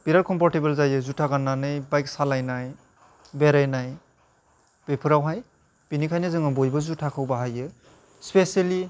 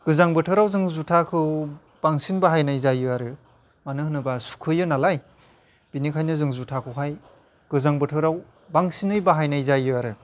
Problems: none marked